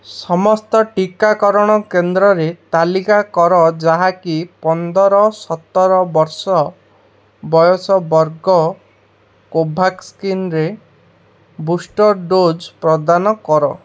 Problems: none marked